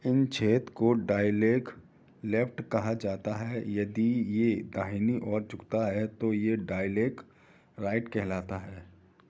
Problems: background sounds at intervals